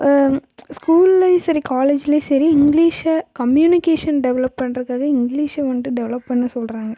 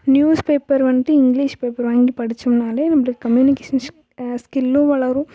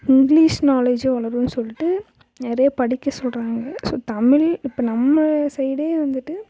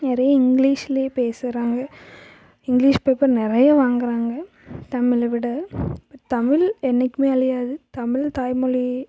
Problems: background sounds at intervals